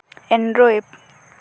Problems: background sounds at intervals